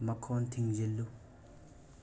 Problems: constant background noise, low volume